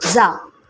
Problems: constant background noise